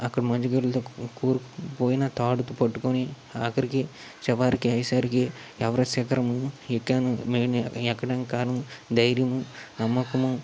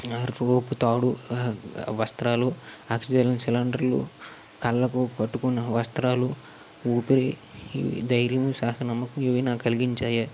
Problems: constant background noise